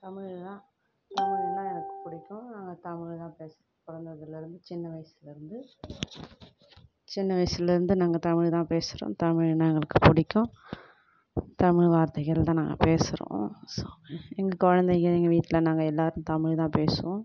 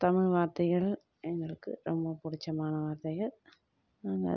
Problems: background sounds at intervals, low volume